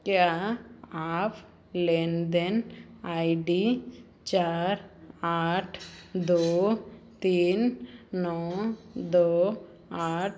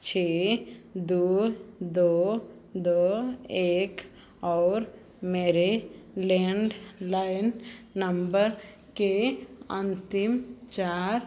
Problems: none marked